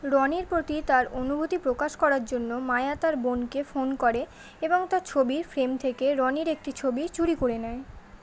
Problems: constant background noise, background conversations at intervals